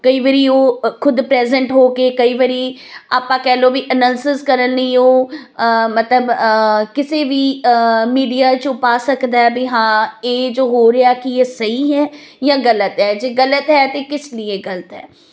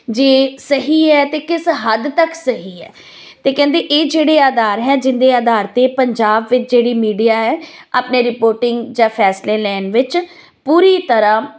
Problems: none marked